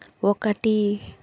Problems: constant background noise